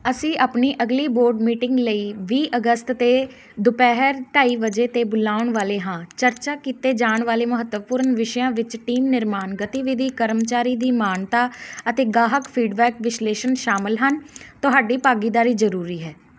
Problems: none marked